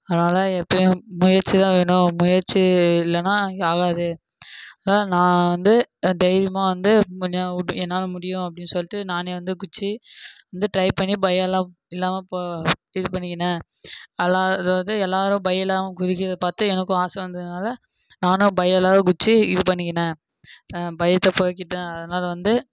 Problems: background sounds at intervals